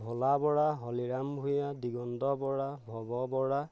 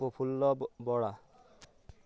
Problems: none marked